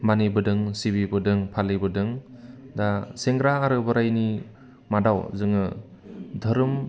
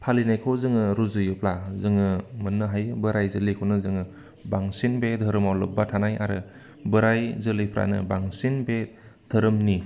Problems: none marked